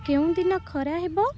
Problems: constant background noise